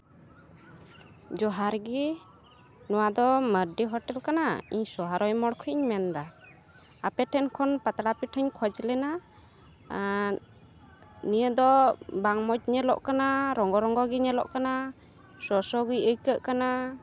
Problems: none marked